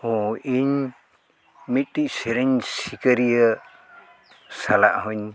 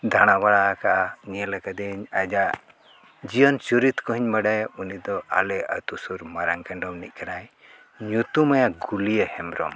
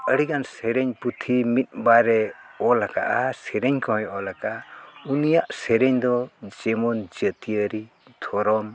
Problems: none marked